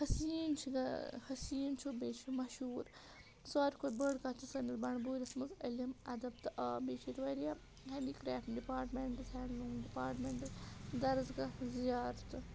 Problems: none marked